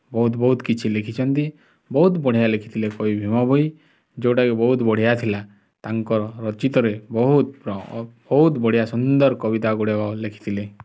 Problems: none marked